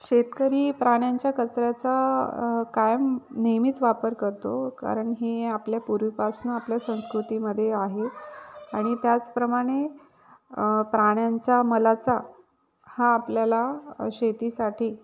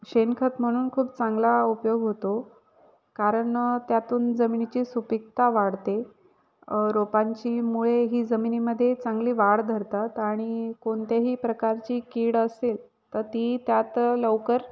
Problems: none marked